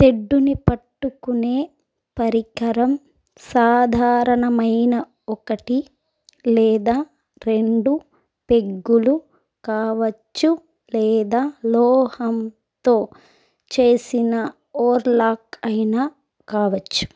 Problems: background sounds at intervals